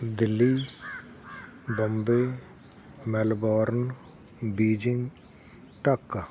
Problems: none marked